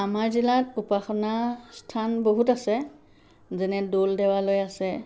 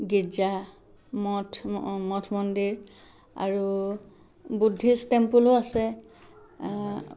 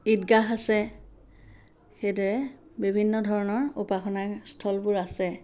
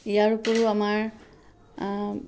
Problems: none marked